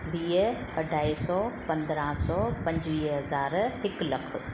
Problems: constant background noise